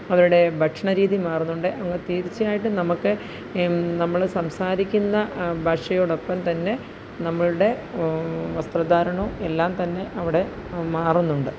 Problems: none marked